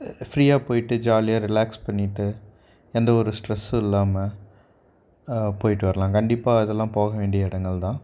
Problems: none marked